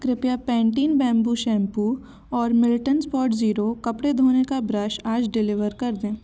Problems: constant background noise